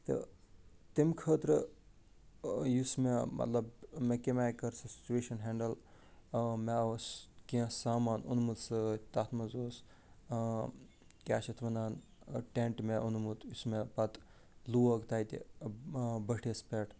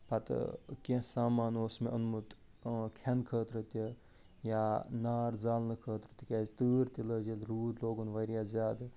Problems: none marked